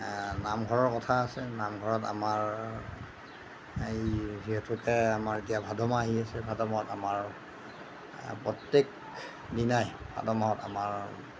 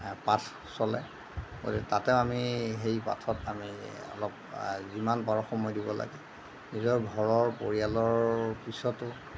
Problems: none marked